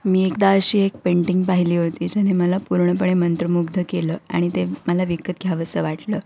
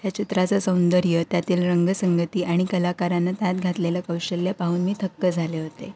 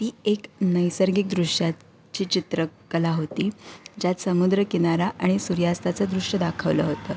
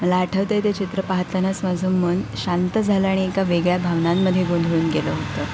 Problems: background sounds at intervals